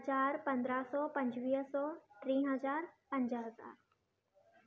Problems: constant background noise, low volume